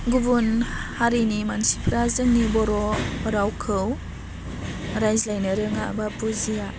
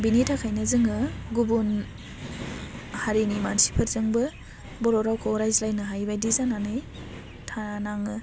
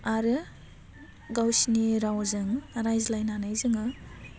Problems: constant background noise